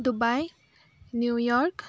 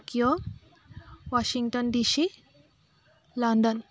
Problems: constant background noise